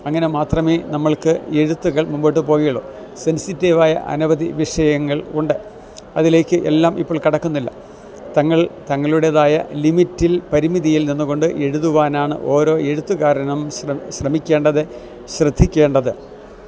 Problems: none marked